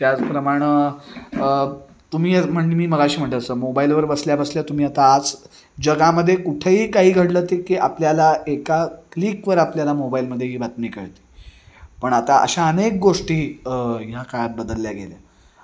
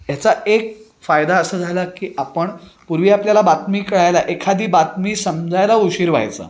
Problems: background sounds at intervals